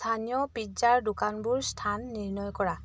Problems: none marked